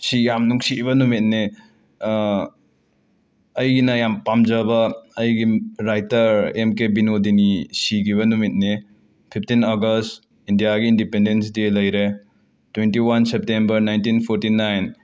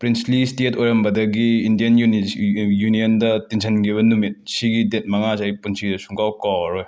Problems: background sounds at intervals